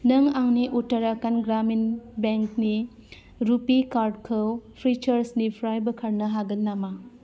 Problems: constant background noise